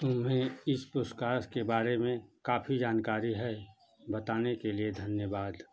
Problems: constant background noise